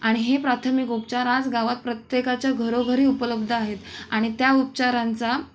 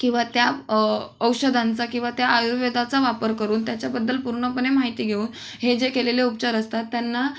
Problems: none marked